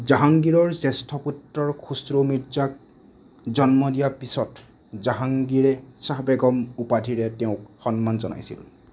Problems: none marked